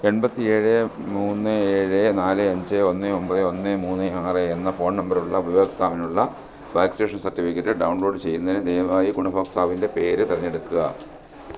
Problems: constant background noise